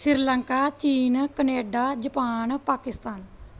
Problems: none marked